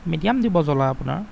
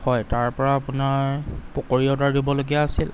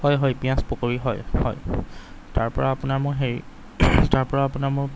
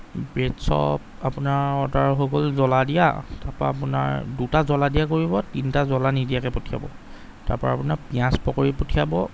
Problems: none marked